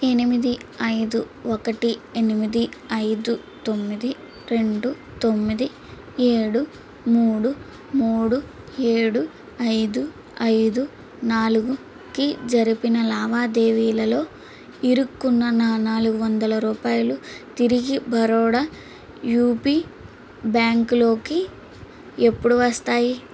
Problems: constant background noise